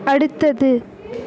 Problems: background conversations at intervals